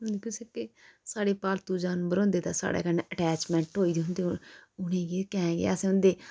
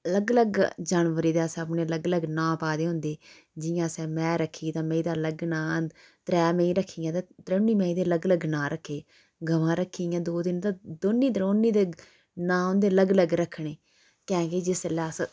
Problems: background sounds at intervals